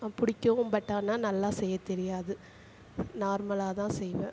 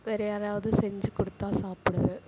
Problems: constant background noise